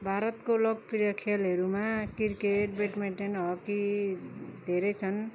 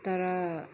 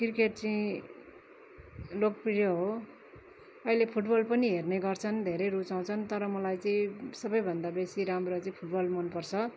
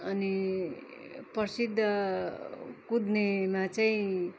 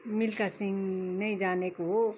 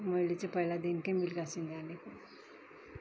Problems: constant background noise